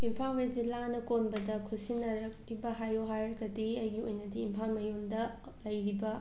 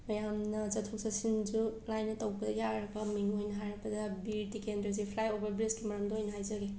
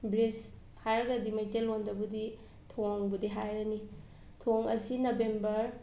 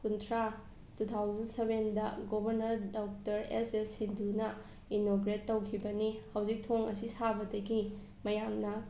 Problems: background sounds at intervals